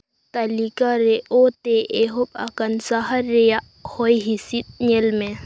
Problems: constant background noise